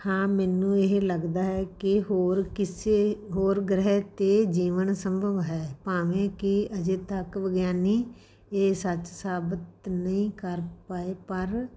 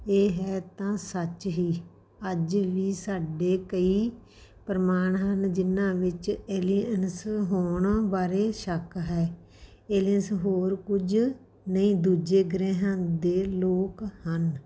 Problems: background sounds at intervals